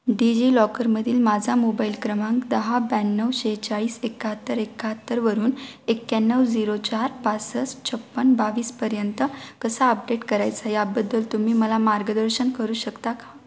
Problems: constant background noise, background conversations at intervals